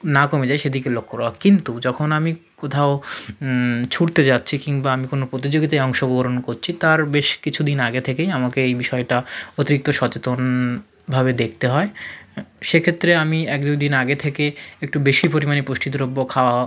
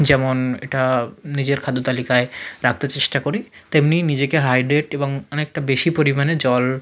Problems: none marked